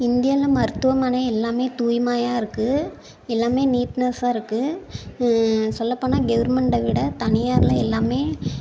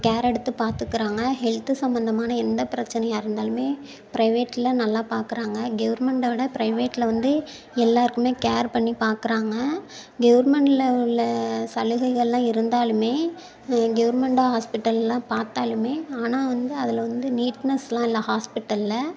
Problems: background sounds at intervals